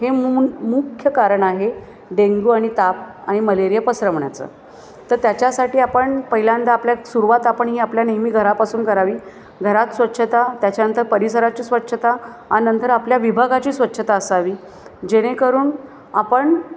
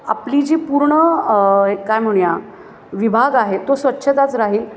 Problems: constant background noise, continuous background conversations